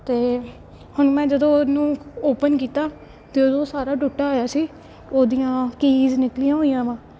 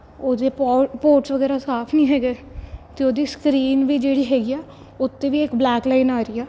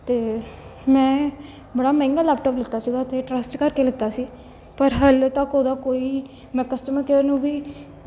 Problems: background sounds at intervals, background conversations at intervals